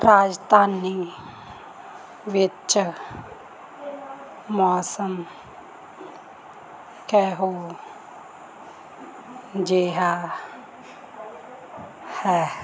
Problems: constant background noise